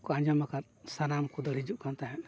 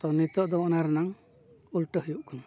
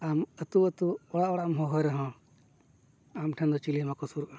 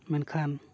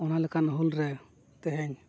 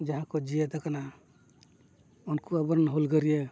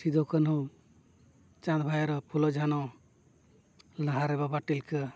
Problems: none marked